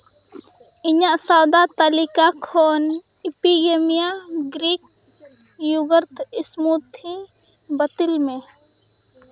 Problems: background sounds at intervals